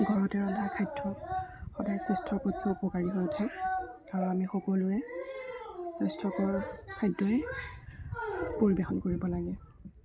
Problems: constant background noise, continuous background conversations, low volume